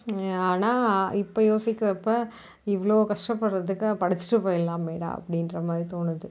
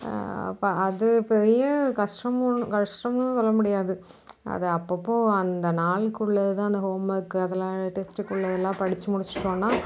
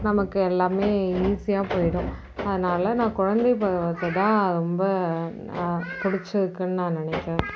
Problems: background sounds at intervals